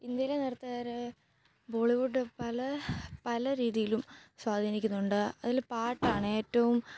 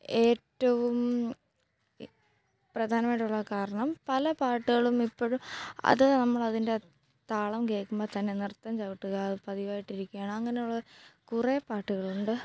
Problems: low volume